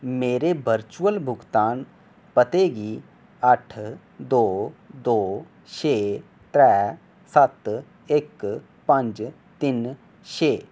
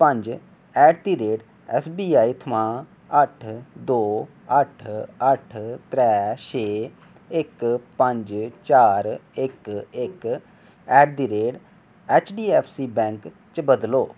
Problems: none marked